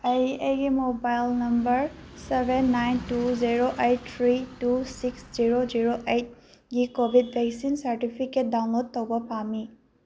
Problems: low volume